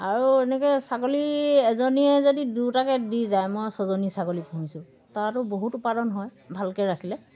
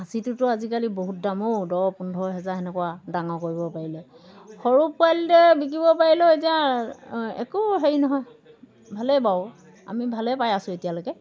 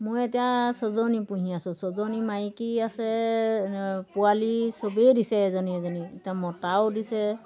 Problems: background sounds at intervals